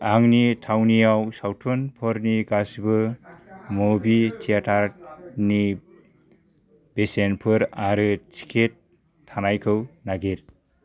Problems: none marked